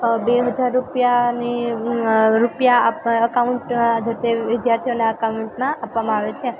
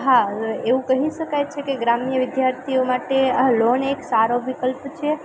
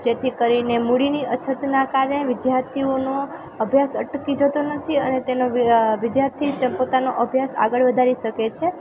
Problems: constant background noise